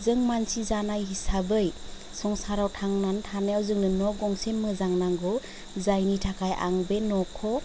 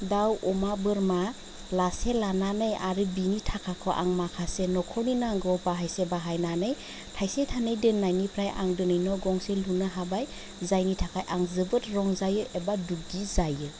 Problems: none marked